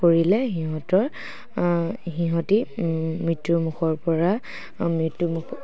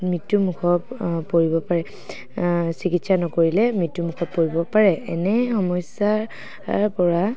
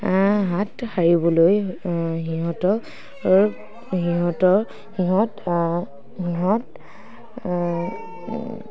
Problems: none marked